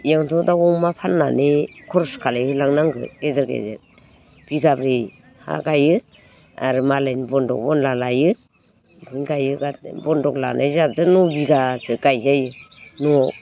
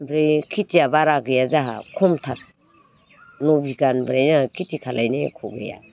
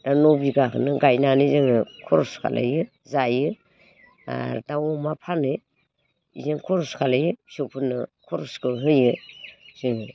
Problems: none marked